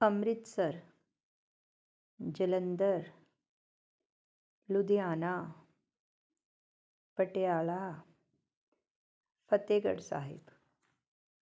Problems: none marked